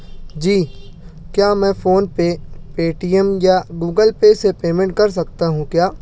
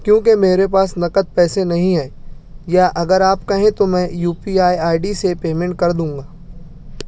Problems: none marked